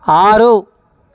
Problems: constant background noise